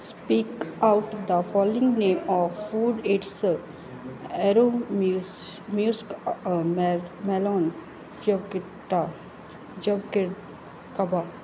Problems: background sounds at intervals